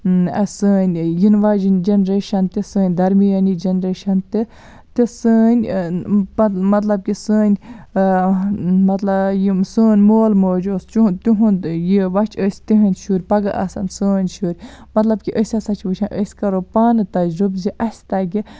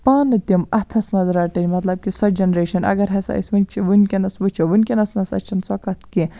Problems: none marked